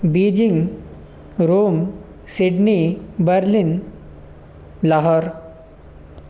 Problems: none marked